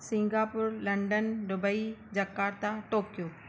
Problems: none marked